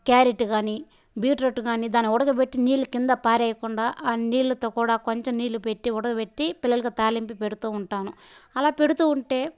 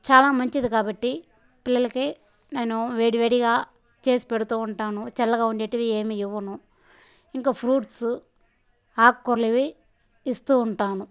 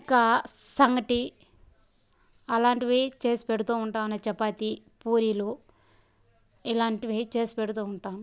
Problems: background sounds at intervals, background conversations at intervals